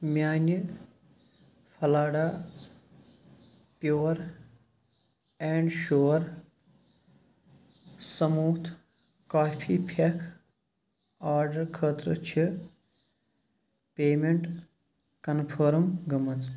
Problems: background sounds at intervals